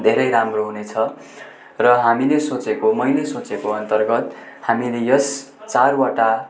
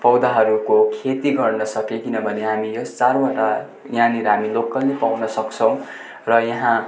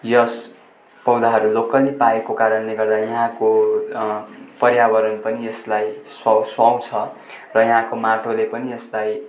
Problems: constant background noise, continuous background conversations